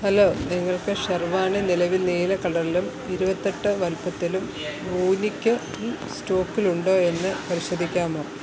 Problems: constant background noise, low volume